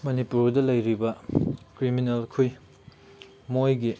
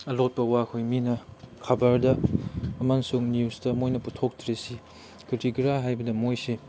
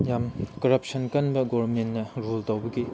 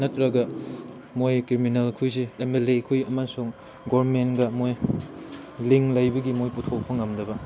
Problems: background sounds at intervals